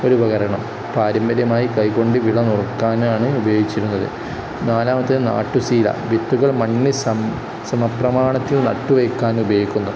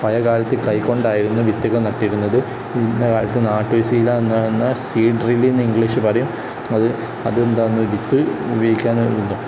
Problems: constant background noise